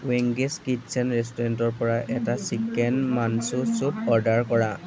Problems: background conversations at intervals